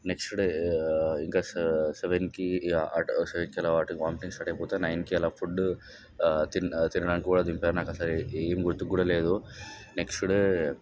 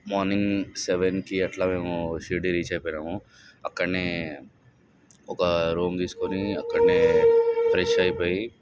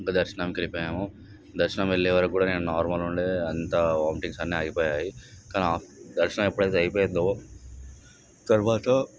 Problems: background sounds at intervals, background conversations at intervals